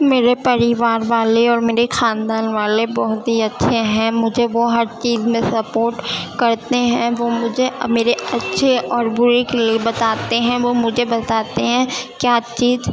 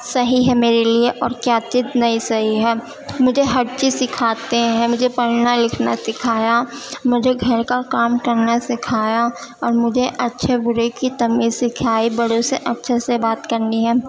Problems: constant background noise, continuous background conversations